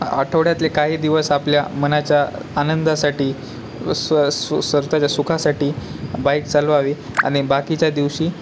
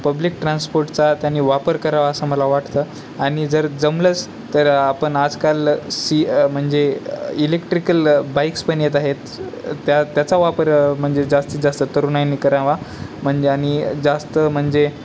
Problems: none marked